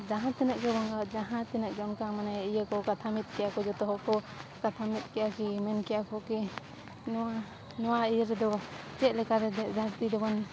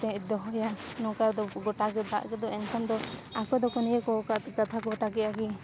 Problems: constant background noise, background conversations at intervals